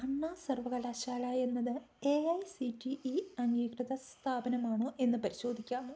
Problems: background sounds at intervals, low volume